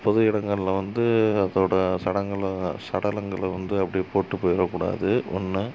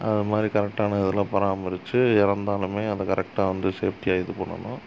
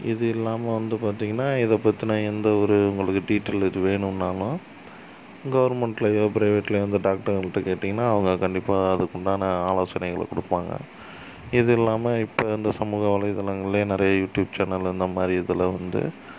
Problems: constant background noise